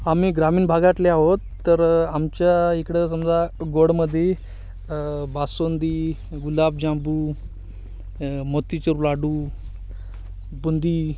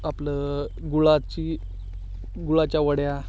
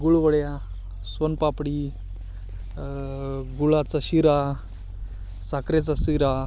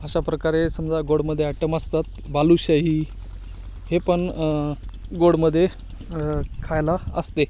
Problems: none marked